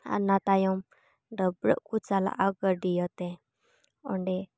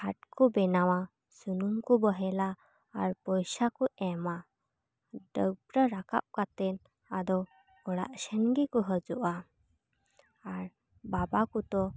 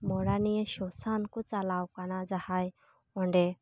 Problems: none marked